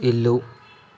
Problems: none marked